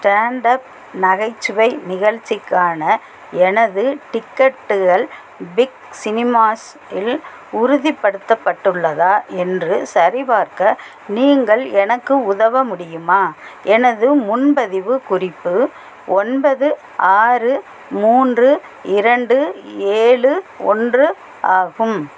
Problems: background sounds at intervals